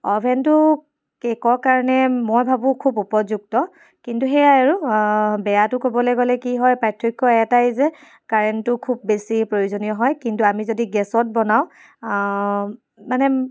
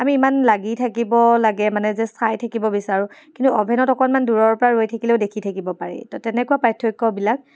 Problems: none marked